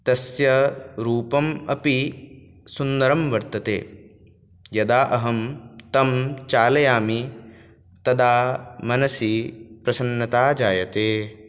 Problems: none marked